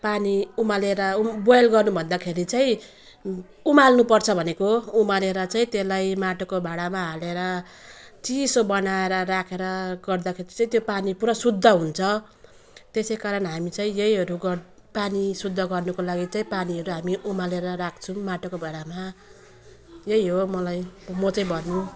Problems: constant background noise